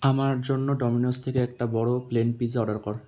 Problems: constant background noise